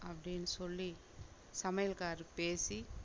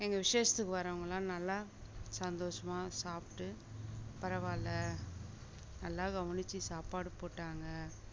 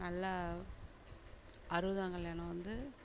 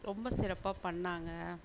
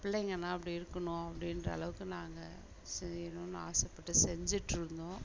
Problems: background sounds at intervals, low volume